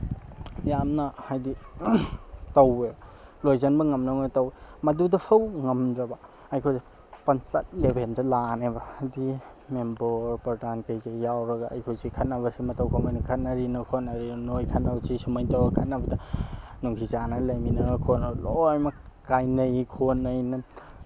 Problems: background sounds at intervals